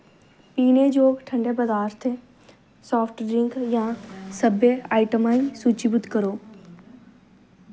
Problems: background sounds at intervals